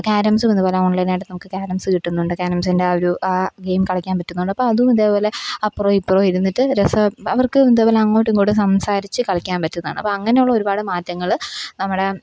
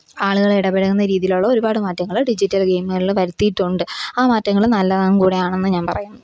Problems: none marked